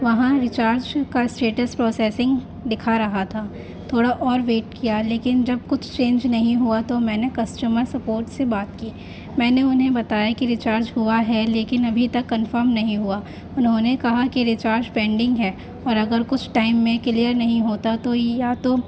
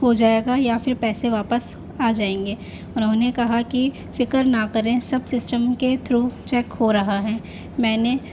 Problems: constant background noise